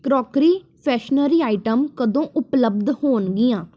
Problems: none marked